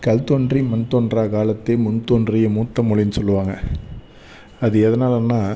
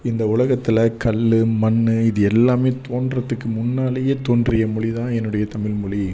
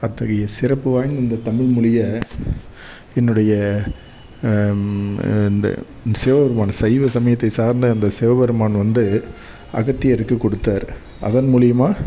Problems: background sounds at intervals